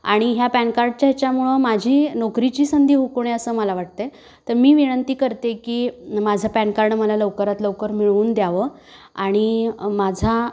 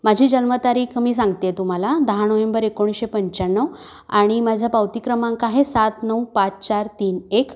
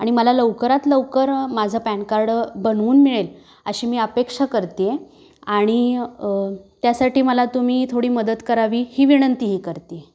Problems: background sounds at intervals